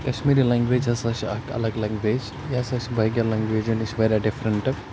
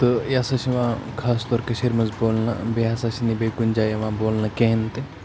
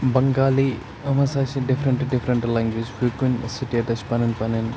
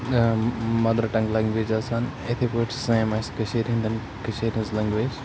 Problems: constant background noise